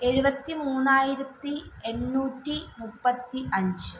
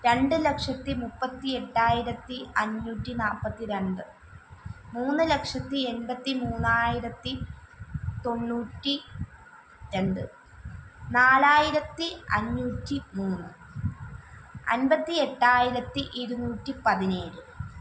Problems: background sounds at intervals